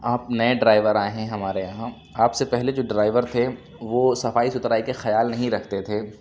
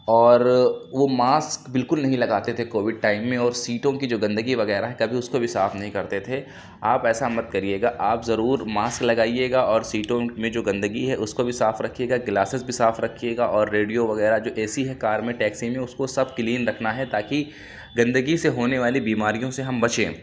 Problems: constant background noise